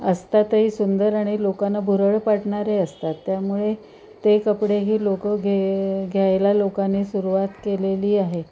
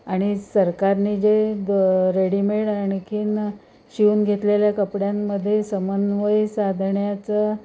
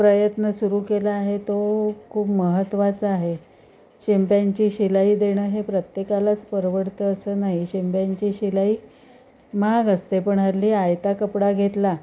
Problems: constant background noise, continuous background conversations